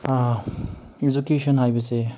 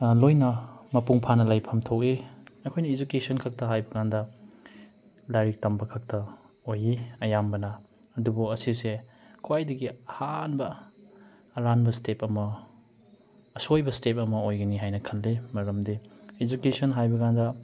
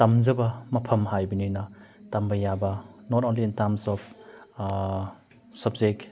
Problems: background sounds at intervals